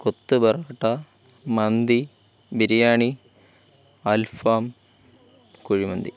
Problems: none marked